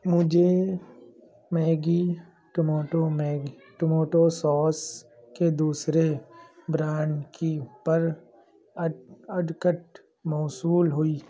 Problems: background sounds at intervals, background conversations at intervals